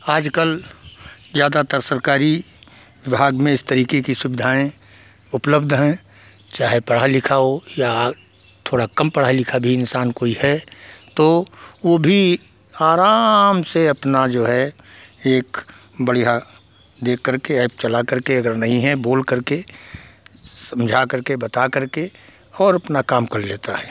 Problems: background sounds at intervals